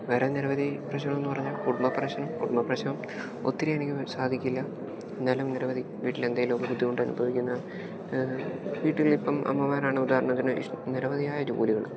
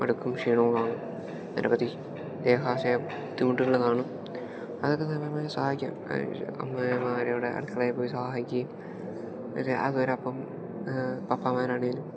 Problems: background sounds at intervals